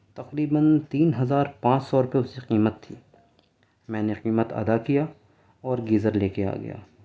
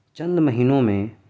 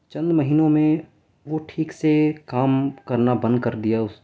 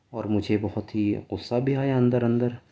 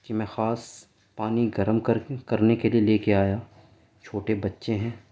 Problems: none marked